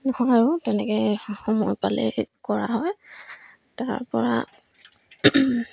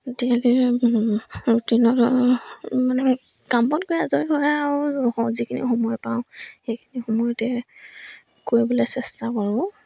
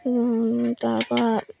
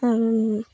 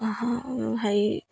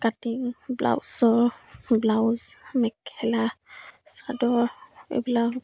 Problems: none marked